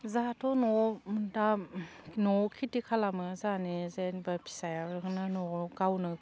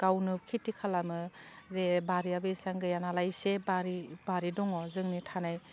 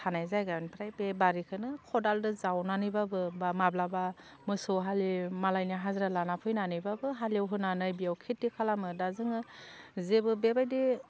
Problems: constant background noise